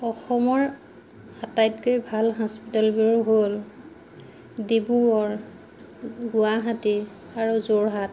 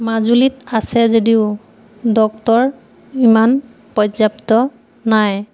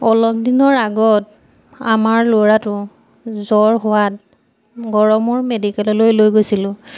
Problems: none marked